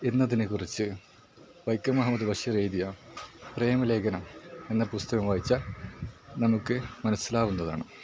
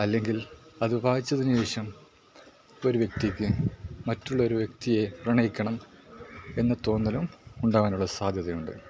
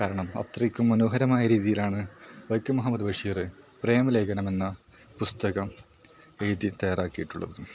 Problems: background sounds at intervals, low volume